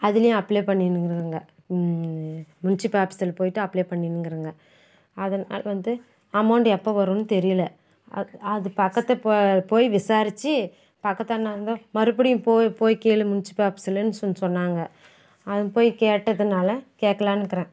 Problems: none marked